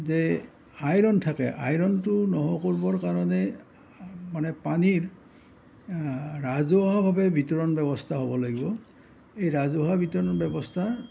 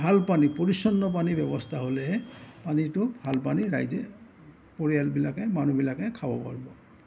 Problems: none marked